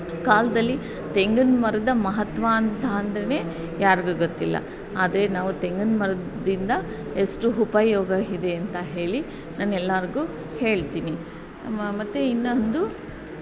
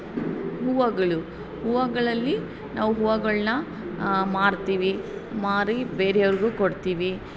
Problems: constant background noise